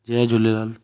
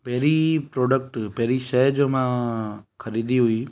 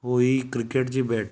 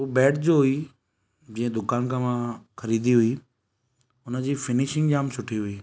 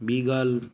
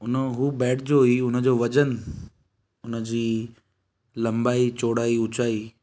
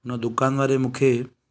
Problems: none marked